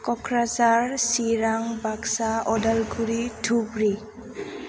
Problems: constant background noise